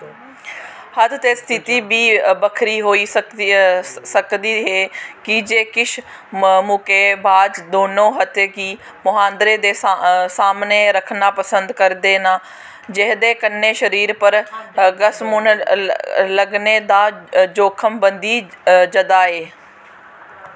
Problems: constant background noise